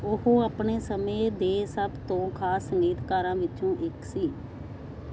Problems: constant background noise